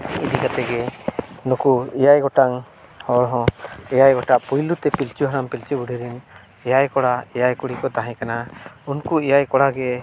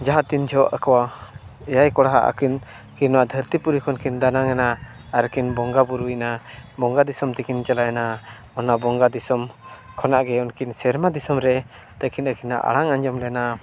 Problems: background sounds at intervals